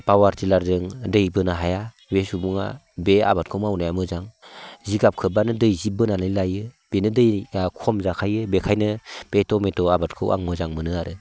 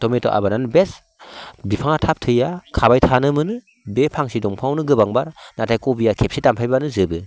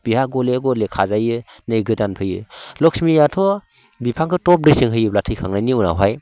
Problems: constant background noise